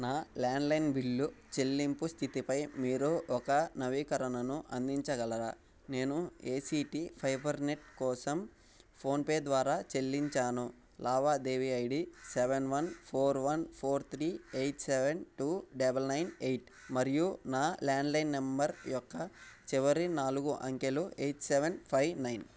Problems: background sounds at intervals